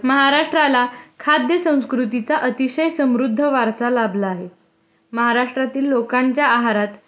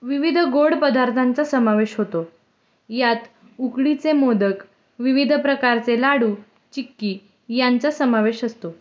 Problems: background sounds at intervals